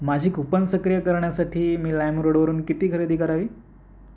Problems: background sounds at intervals